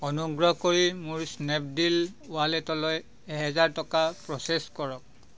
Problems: none marked